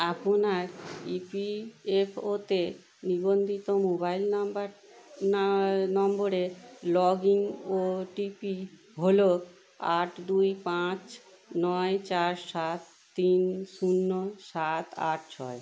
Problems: constant background noise